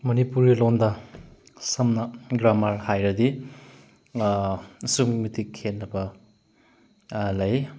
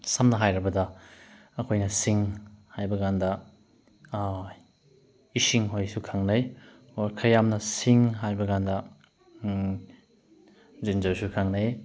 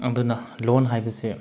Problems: background sounds at intervals